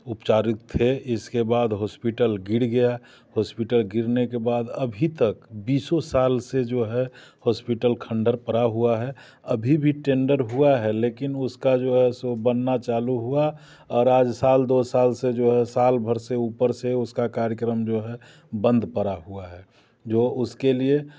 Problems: none marked